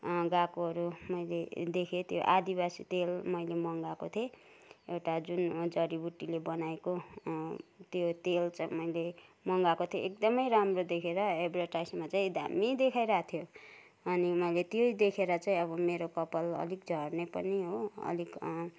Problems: none marked